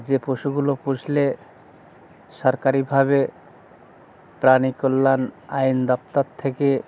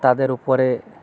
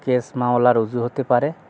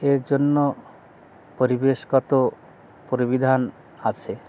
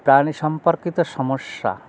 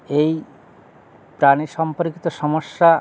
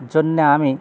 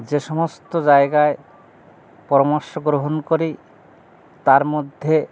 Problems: constant background noise, background conversations at intervals